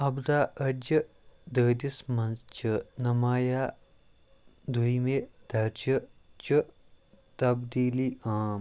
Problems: none marked